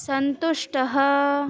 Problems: none marked